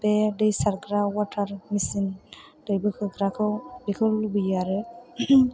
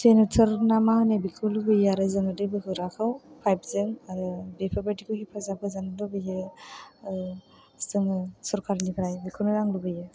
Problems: none marked